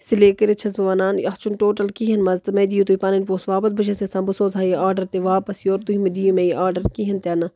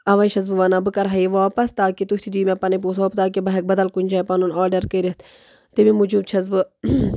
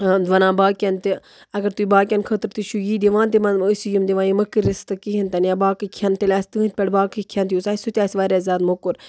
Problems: background sounds at intervals